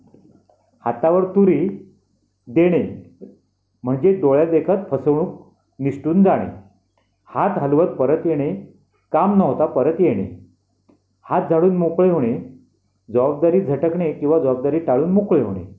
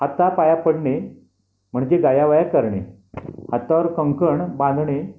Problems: constant background noise, background conversations at intervals